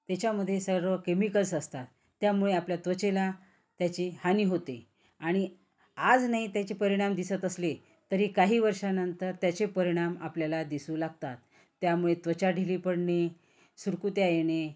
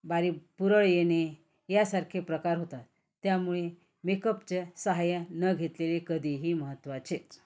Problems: none marked